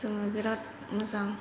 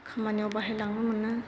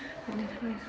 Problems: constant background noise